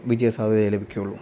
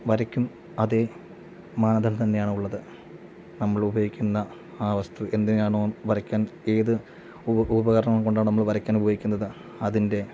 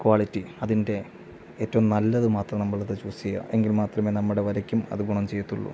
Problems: none marked